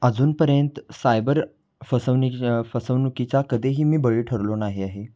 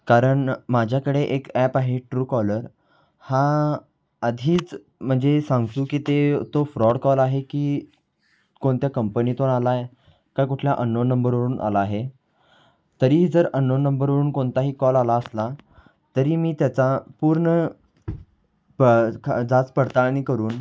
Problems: constant background noise, background conversations at intervals